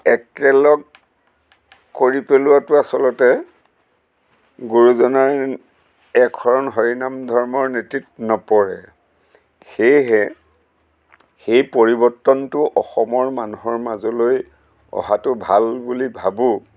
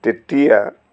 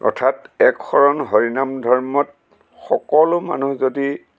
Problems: constant background noise